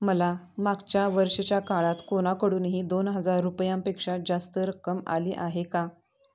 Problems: background conversations at intervals